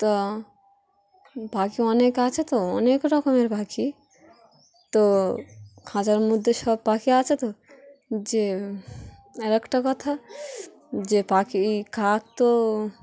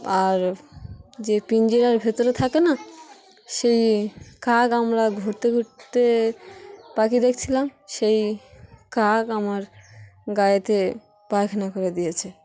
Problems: constant background noise, background conversations at intervals